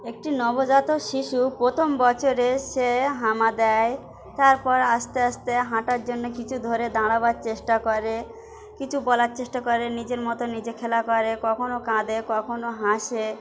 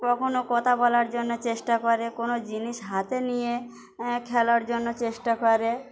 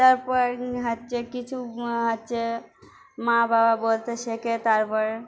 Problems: constant background noise, continuous background conversations